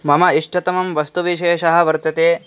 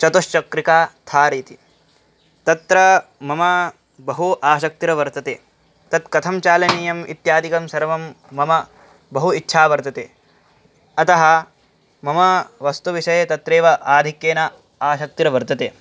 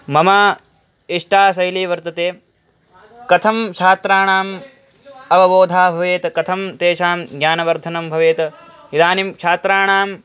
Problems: none marked